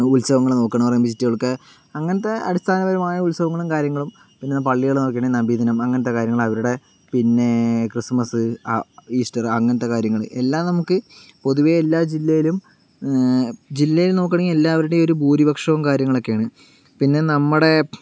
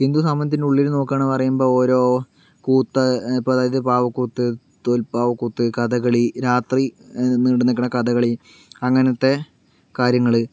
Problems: background sounds at intervals